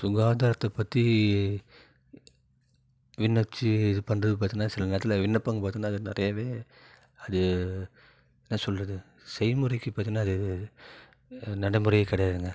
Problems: low volume